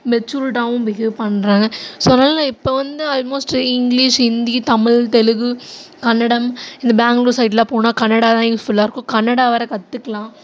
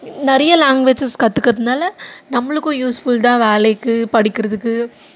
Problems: constant background noise